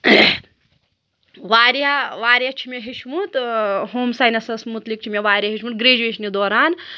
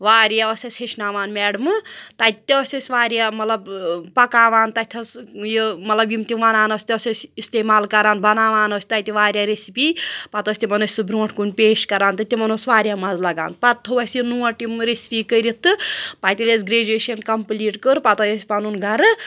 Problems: none marked